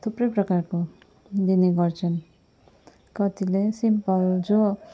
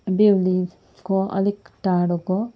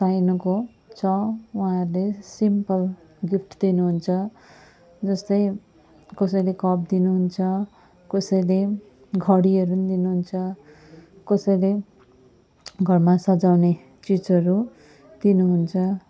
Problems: none marked